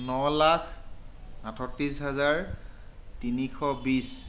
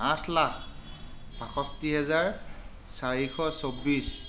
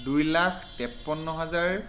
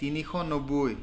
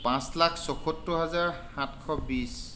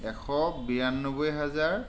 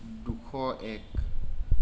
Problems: constant background noise